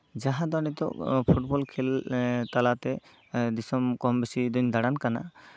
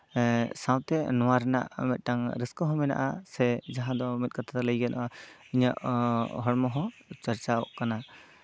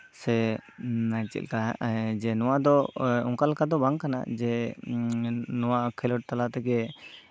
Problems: background sounds at intervals